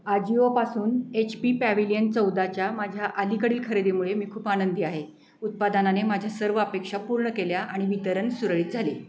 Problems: constant background noise